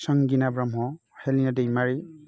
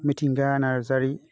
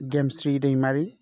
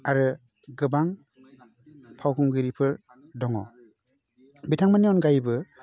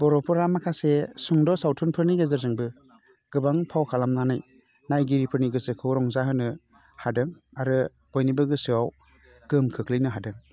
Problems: constant background noise